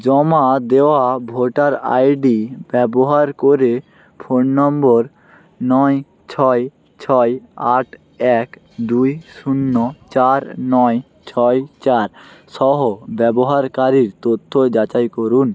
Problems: none marked